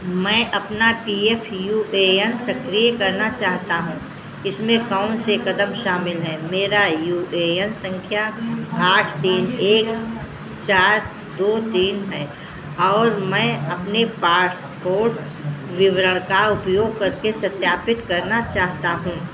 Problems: constant background noise